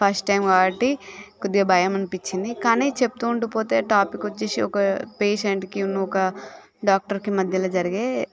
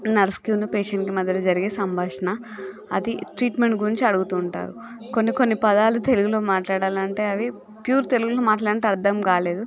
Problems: none marked